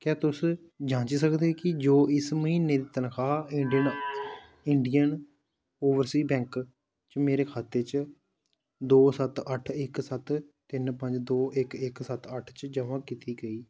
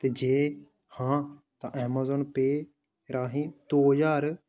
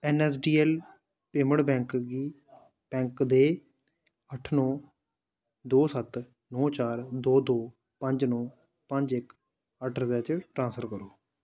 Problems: low volume